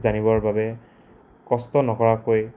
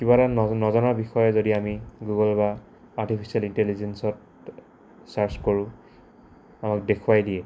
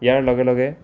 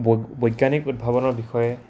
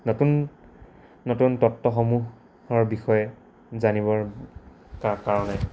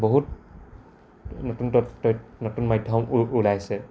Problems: constant background noise